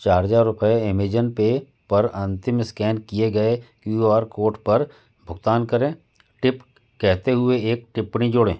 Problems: background sounds at intervals